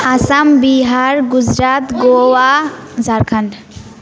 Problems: continuous background conversations